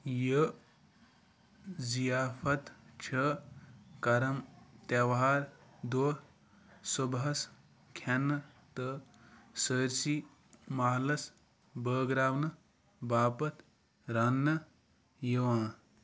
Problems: none marked